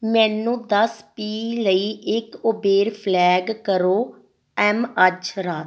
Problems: none marked